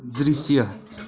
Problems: continuous background conversations